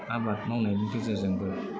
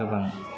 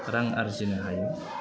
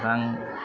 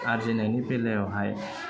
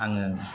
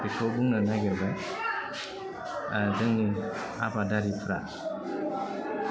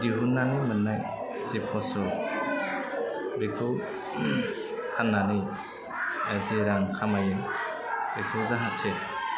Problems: constant background noise, low volume